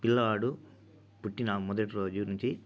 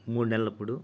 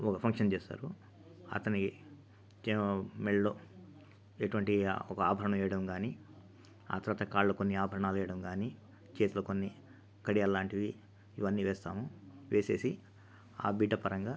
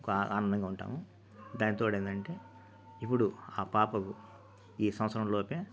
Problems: constant background noise